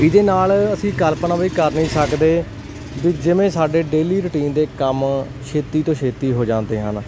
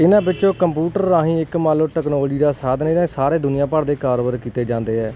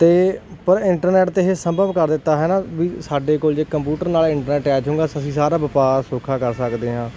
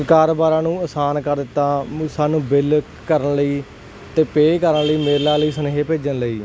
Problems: none marked